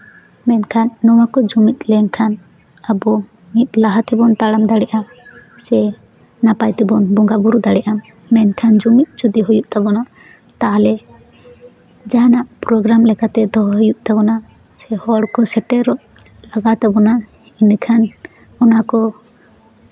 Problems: none marked